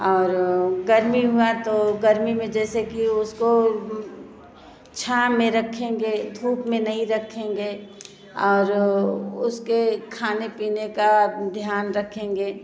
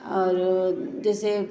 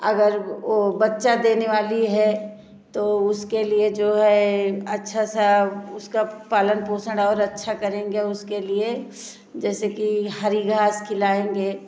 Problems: constant background noise